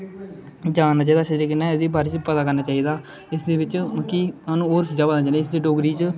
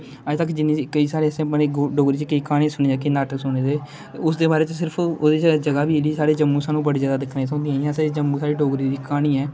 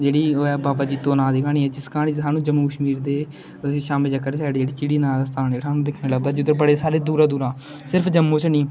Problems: constant background noise